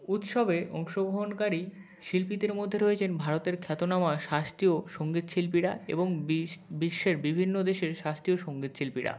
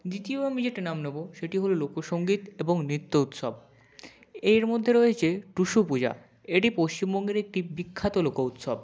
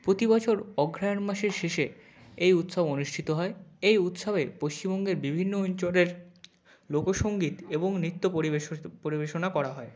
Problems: none marked